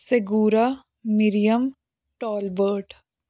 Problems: background sounds at intervals